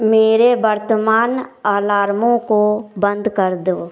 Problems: background sounds at intervals